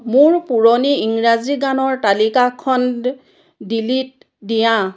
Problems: background sounds at intervals, background conversations at intervals